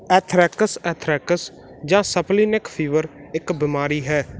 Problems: none marked